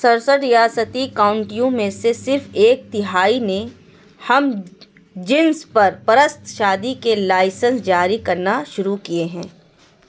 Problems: constant background noise